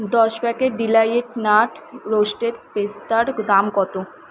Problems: constant background noise